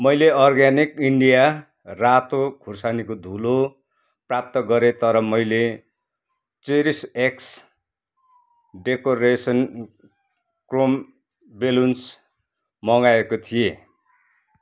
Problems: none marked